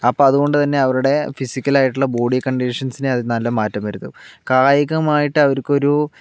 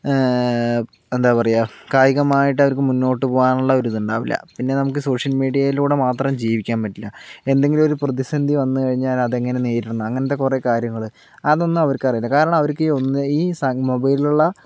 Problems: background sounds at intervals